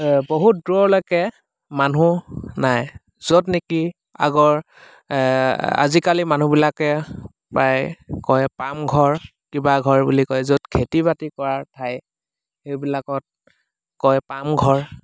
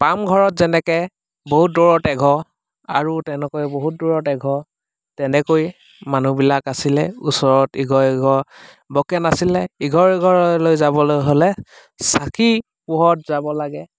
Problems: constant background noise